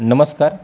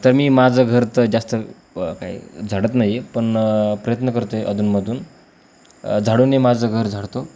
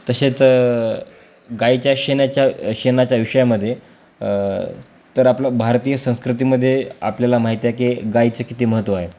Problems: none marked